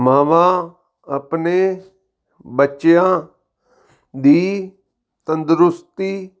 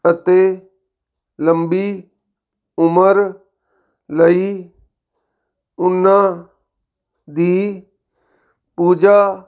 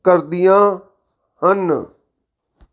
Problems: background sounds at intervals